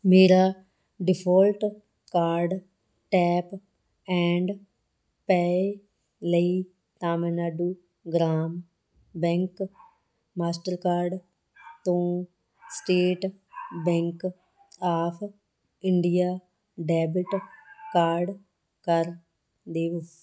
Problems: constant background noise